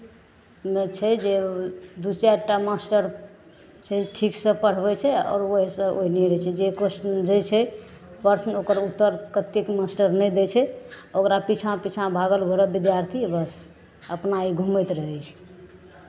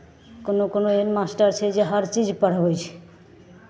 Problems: none marked